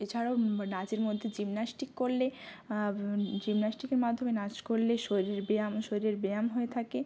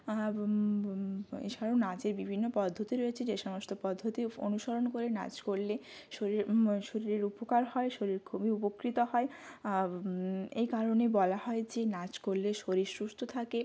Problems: constant background noise